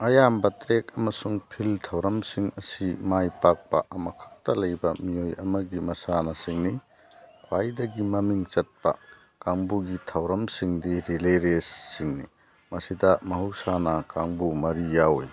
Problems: background sounds at intervals